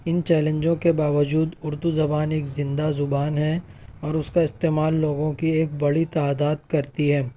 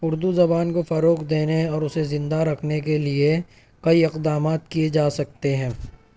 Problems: background sounds at intervals